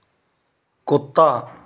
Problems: constant background noise